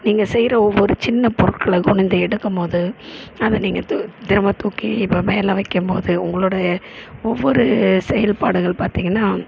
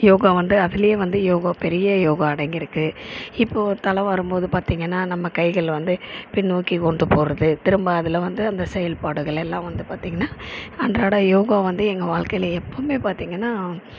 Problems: constant background noise